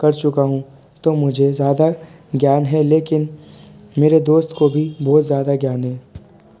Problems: constant background noise, continuous background conversations